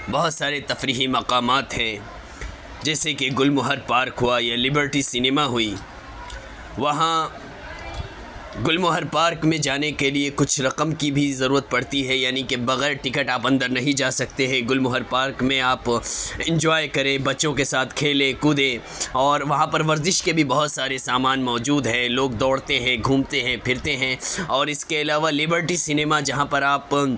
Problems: constant background noise, background conversations at intervals